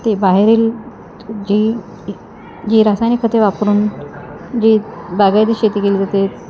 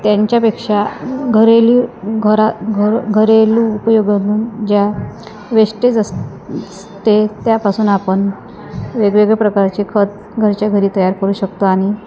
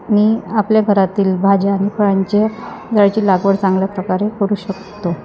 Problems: constant background noise, background conversations at intervals